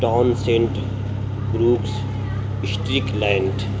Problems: constant background noise